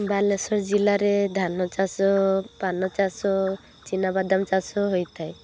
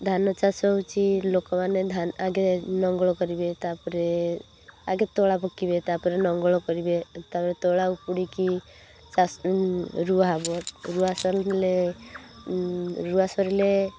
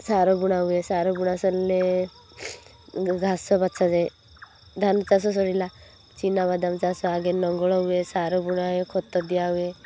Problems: constant background noise